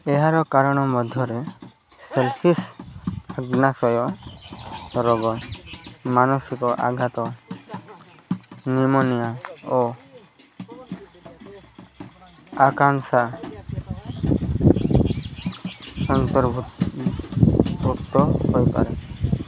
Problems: constant background noise, continuous background conversations